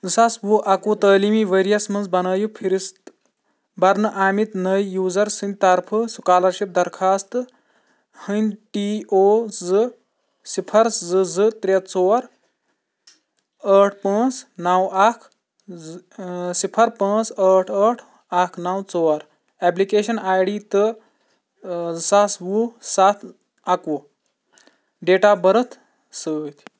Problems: background sounds at intervals